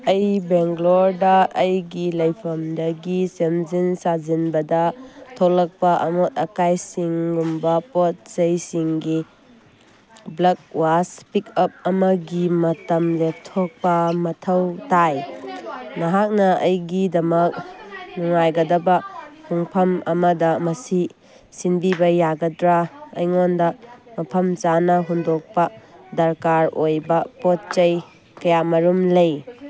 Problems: background sounds at intervals, background conversations at intervals